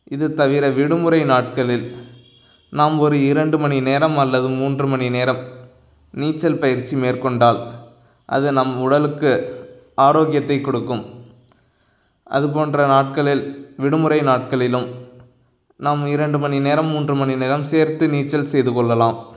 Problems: none marked